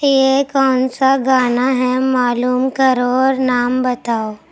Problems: none marked